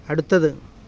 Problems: constant background noise